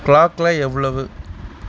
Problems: constant background noise